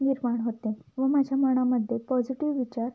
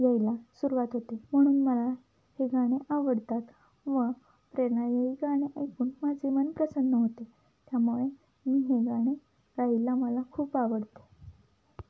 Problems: none marked